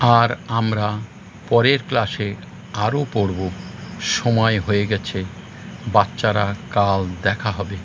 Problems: constant background noise